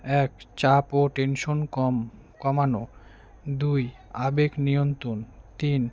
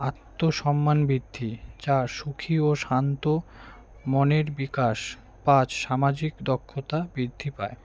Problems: none marked